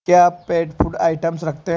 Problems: background sounds at intervals